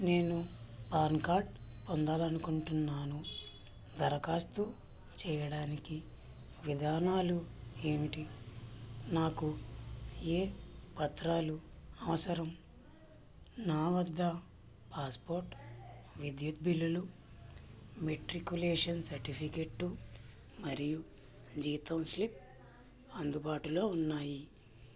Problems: constant background noise